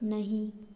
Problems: background sounds at intervals